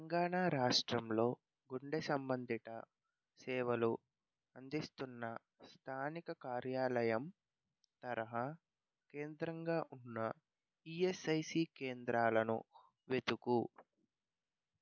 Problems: low volume